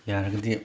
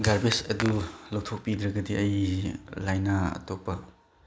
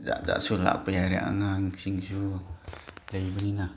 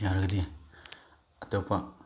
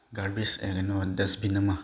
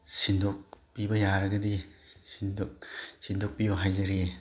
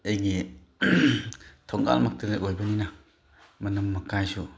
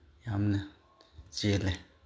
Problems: none marked